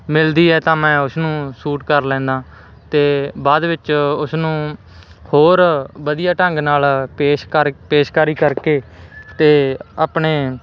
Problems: constant background noise